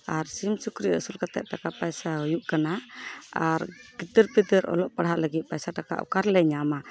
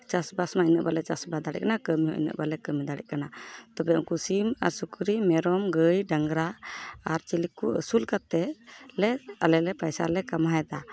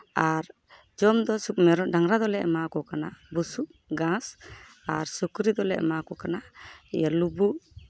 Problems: constant background noise, background conversations at intervals